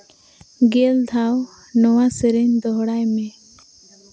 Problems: constant background noise